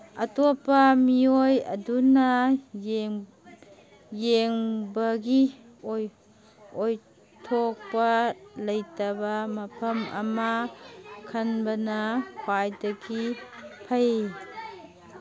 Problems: constant background noise